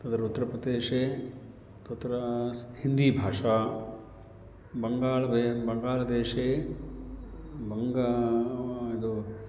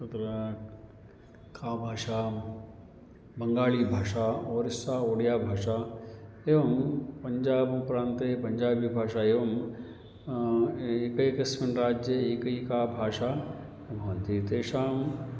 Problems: constant background noise